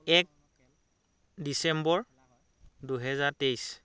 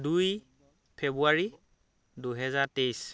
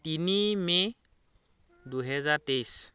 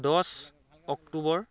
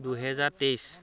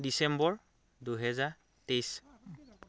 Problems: continuous background conversations